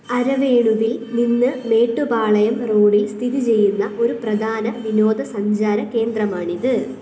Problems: background sounds at intervals